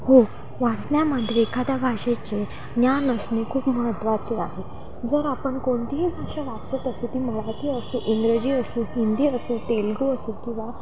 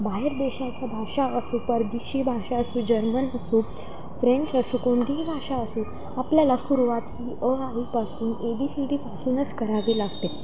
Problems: constant background noise, background conversations at intervals